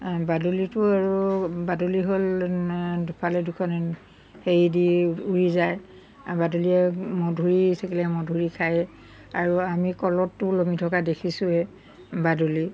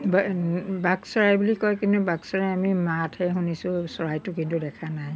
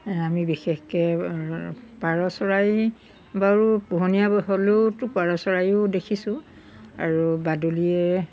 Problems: background sounds at intervals